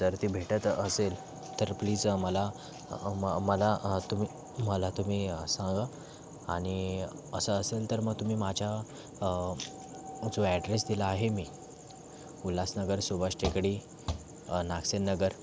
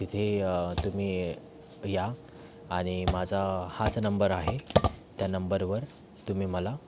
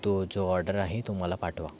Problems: constant background noise